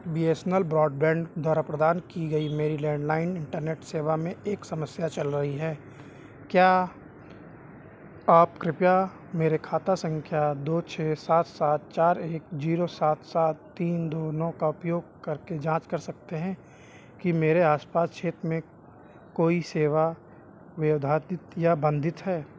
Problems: background sounds at intervals